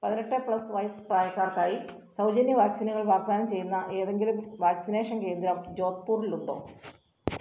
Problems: none marked